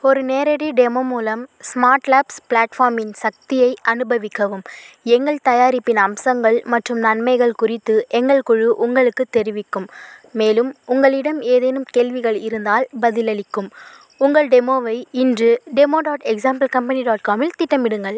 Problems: constant background noise